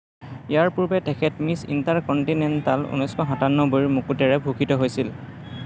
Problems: continuous background conversations